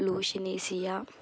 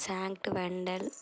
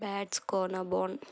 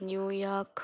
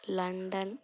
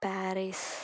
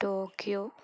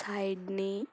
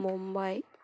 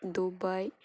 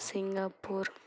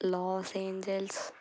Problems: constant background noise